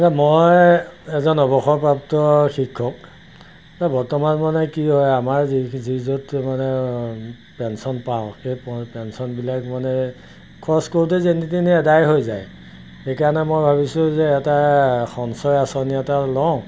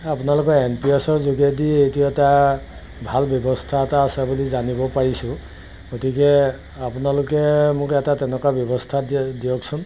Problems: background sounds at intervals